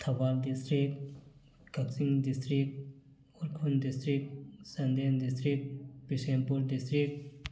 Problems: none marked